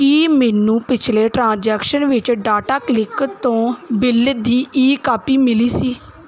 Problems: none marked